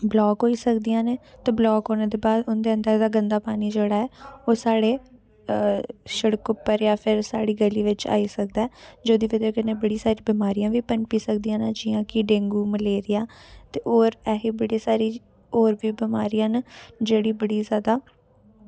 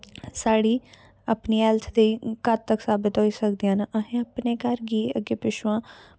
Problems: background sounds at intervals